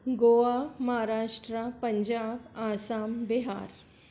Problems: none marked